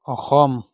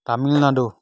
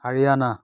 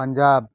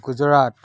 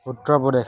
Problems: background sounds at intervals